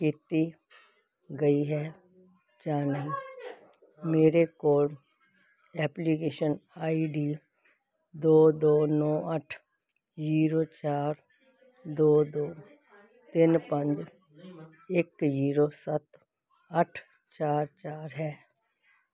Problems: constant background noise